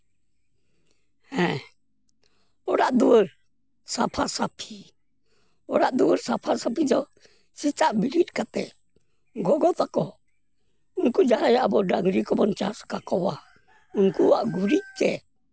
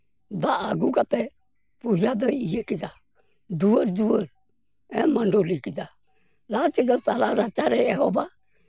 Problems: none marked